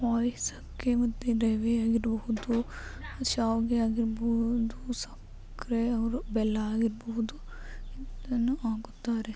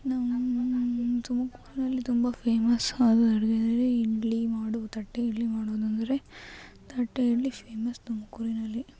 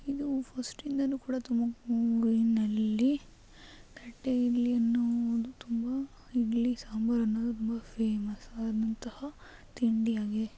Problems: none marked